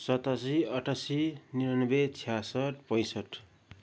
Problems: none marked